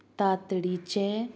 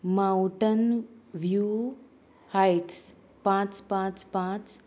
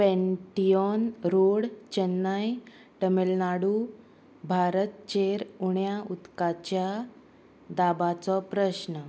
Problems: constant background noise, background conversations at intervals